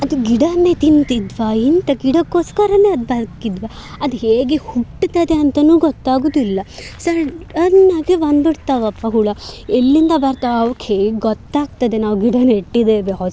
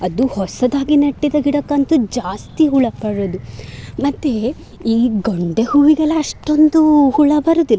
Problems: none marked